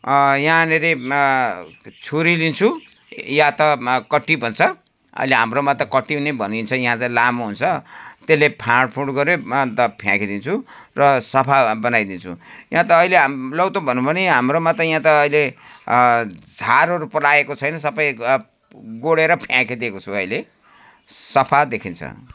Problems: constant background noise